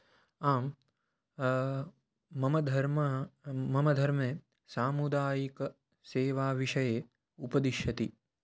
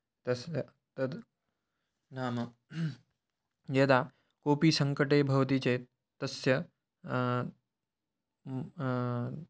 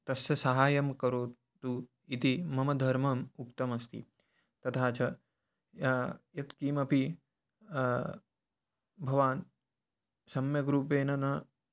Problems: none marked